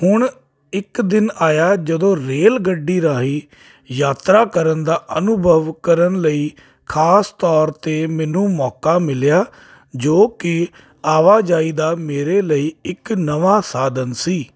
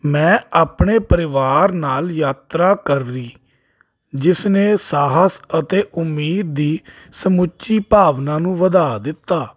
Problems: constant background noise